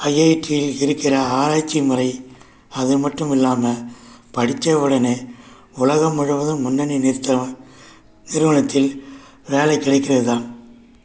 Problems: background sounds at intervals